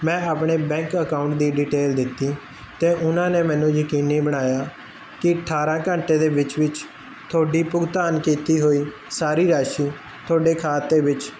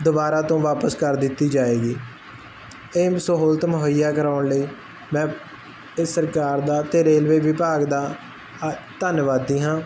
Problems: constant background noise